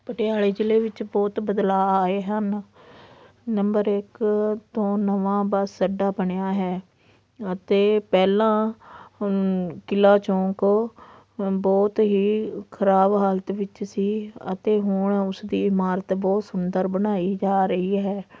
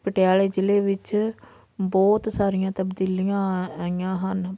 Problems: none marked